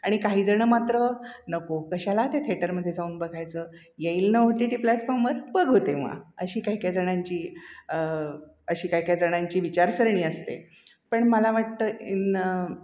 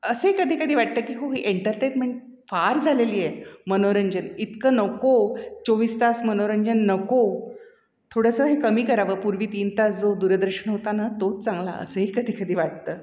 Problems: echo